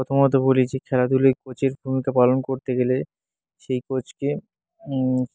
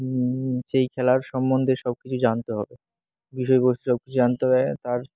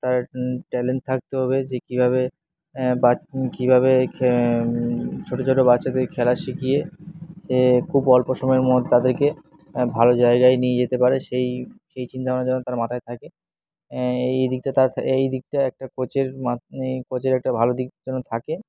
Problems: background sounds at intervals